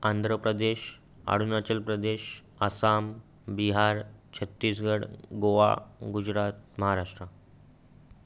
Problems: background sounds at intervals